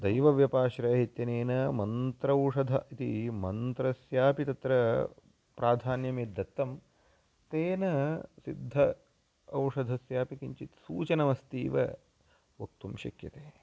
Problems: none marked